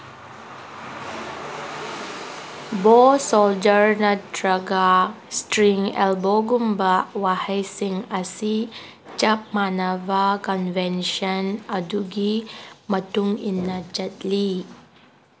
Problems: constant background noise